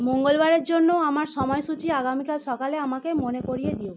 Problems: none marked